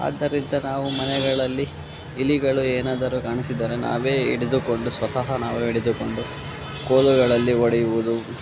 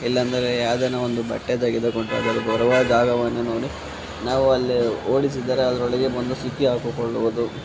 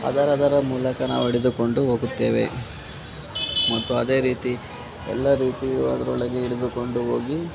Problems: constant background noise